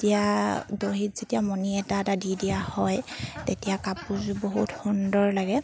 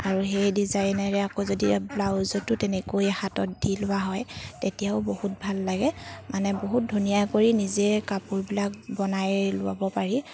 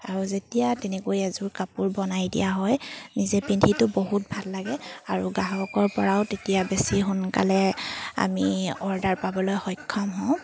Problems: constant background noise